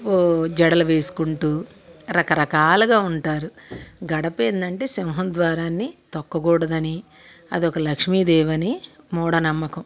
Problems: constant background noise